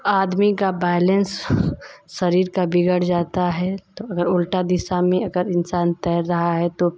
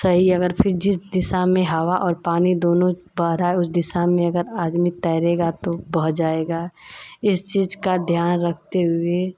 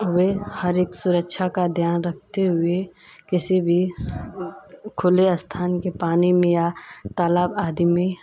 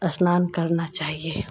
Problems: constant background noise